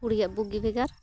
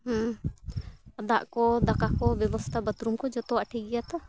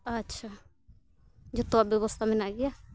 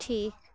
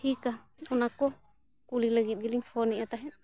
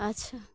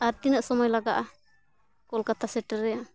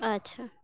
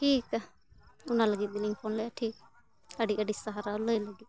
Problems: constant background noise, continuous background conversations